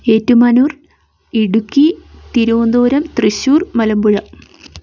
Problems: none marked